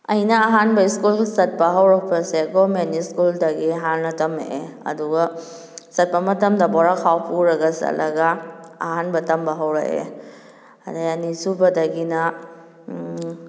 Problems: none marked